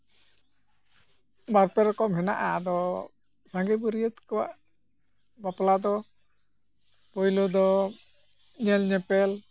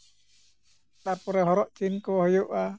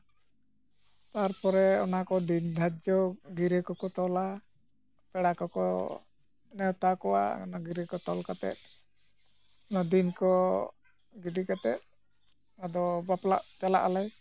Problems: none marked